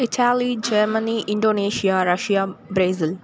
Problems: constant background noise